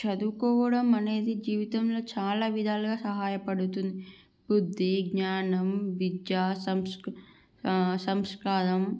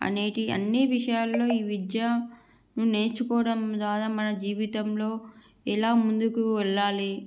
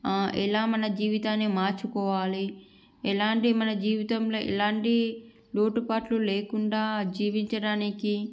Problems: background sounds at intervals